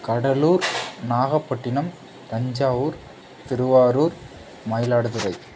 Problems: background sounds at intervals